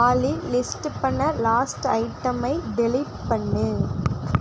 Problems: constant background noise